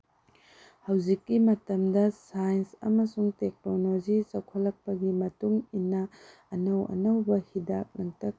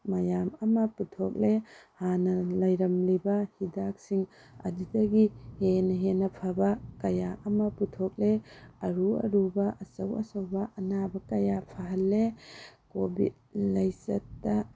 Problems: background sounds at intervals, low volume